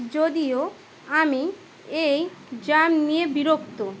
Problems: constant background noise